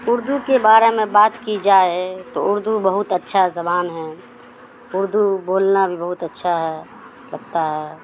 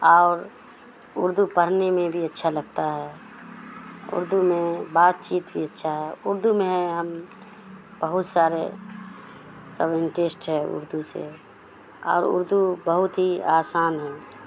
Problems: constant background noise